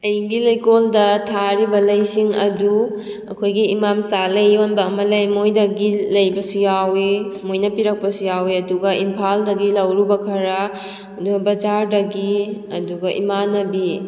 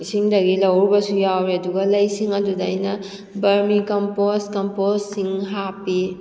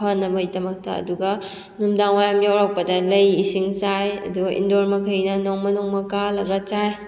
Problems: echo